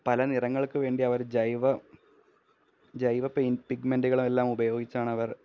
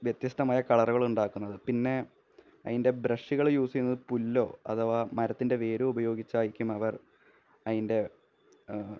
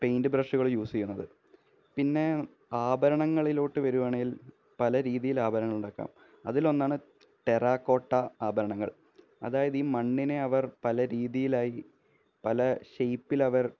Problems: low volume